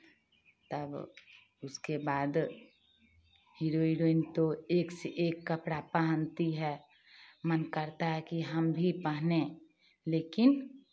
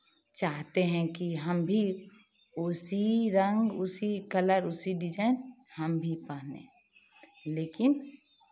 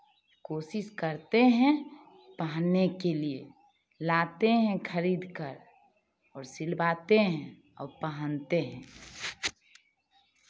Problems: constant background noise, background conversations at intervals